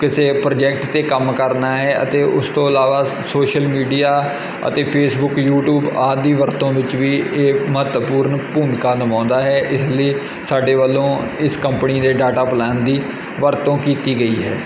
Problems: constant background noise